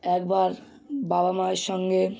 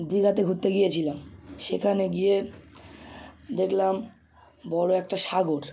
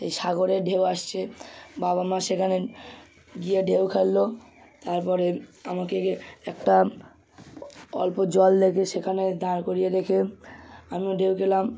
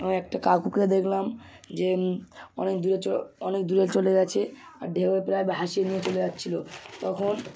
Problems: none marked